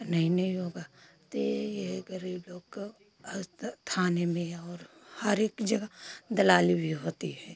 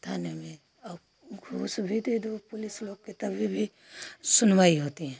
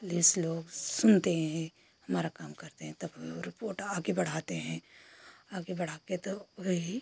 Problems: constant background noise